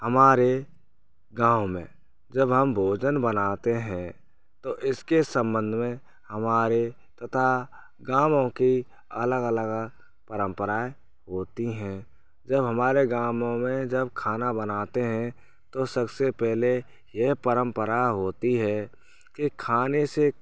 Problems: constant background noise